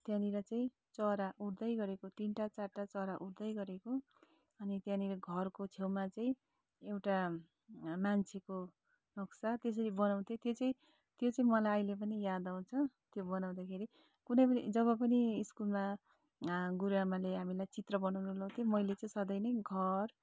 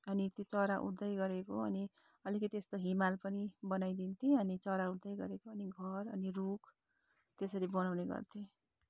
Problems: none marked